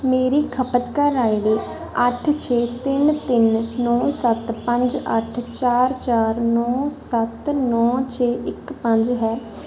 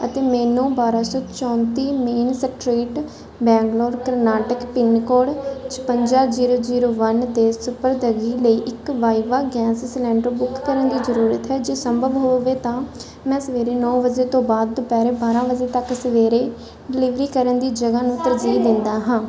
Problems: background conversations at intervals